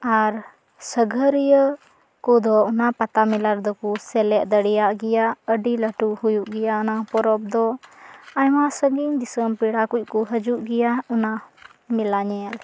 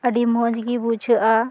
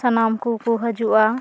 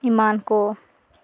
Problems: constant background noise, background conversations at intervals